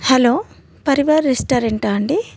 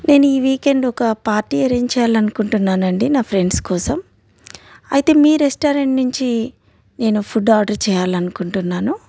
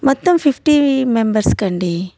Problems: none marked